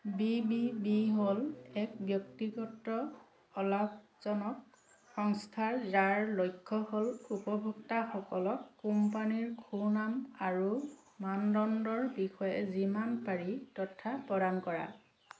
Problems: none marked